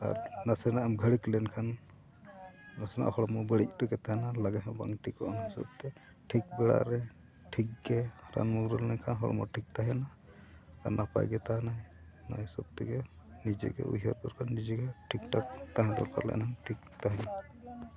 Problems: background sounds at intervals, continuous background conversations, low volume